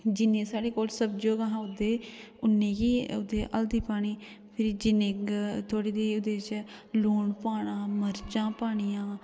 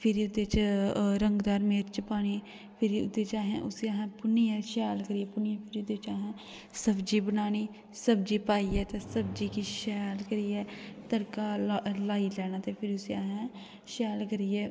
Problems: constant background noise, echo